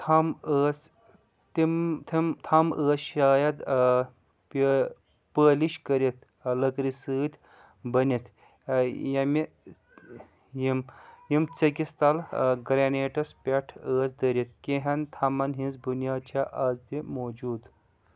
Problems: background sounds at intervals